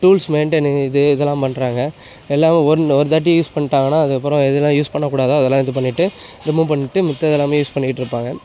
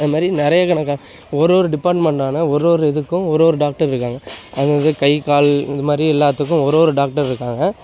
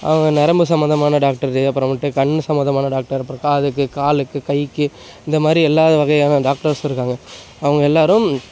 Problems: background sounds at intervals